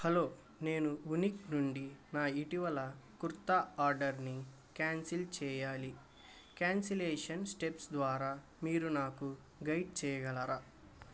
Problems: constant background noise